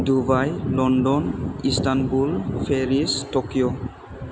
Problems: constant background noise